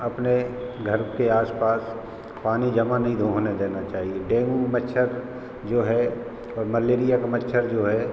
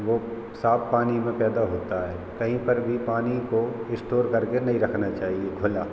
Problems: constant background noise